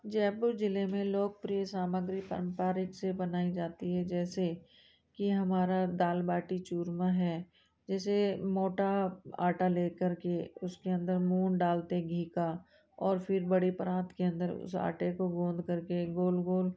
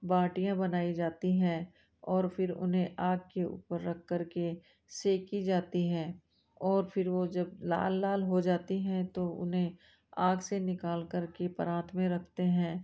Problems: none marked